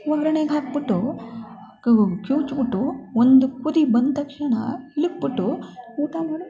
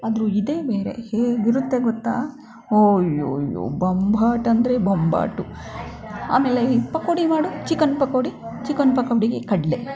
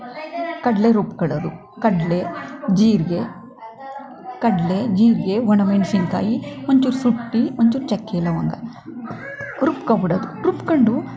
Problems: background sounds at intervals